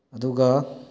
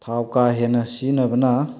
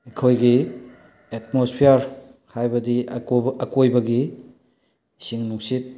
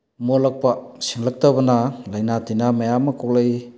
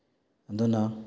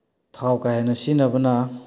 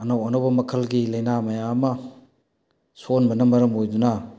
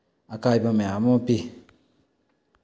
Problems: none marked